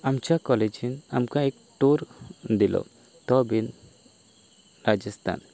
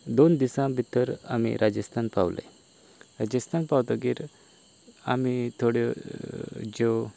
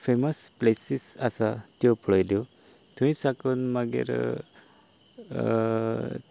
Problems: constant background noise